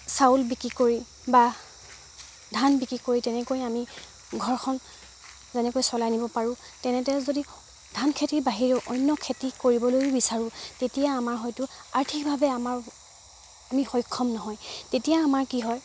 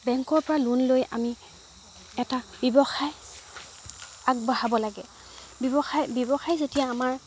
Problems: background sounds at intervals